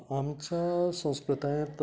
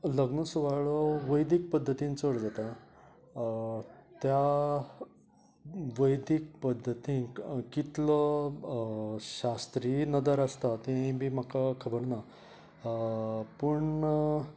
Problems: background sounds at intervals, background conversations at intervals